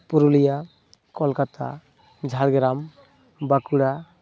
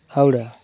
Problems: none marked